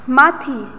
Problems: none marked